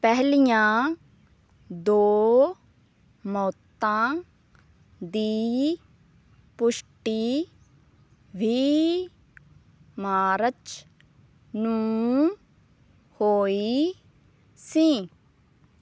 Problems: background sounds at intervals